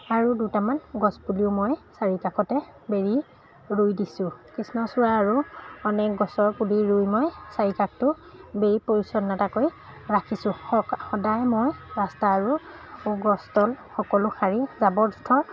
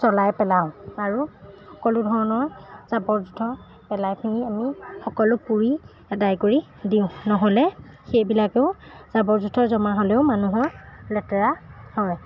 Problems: background sounds at intervals